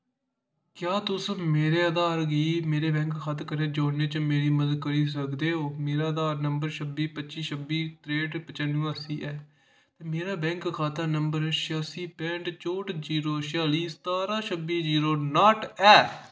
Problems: none marked